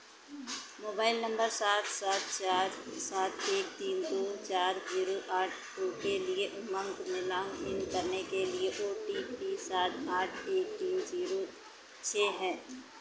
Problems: none marked